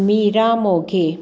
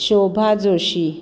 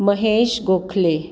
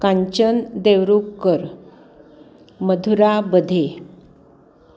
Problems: none marked